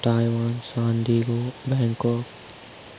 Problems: constant background noise